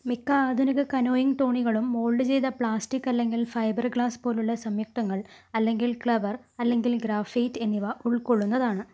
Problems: low volume